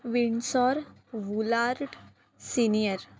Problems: none marked